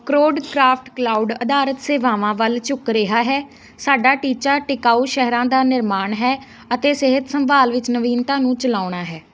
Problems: none marked